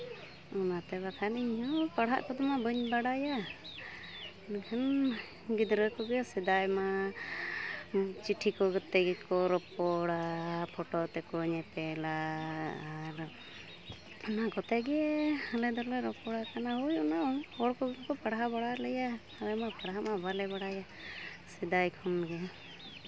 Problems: constant background noise